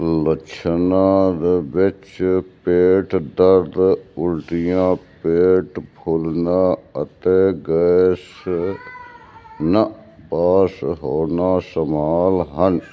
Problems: constant background noise